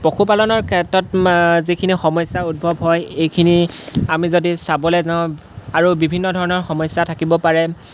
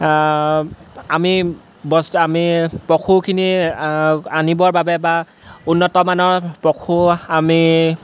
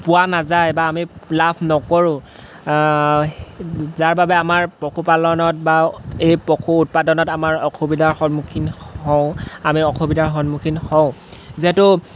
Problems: constant background noise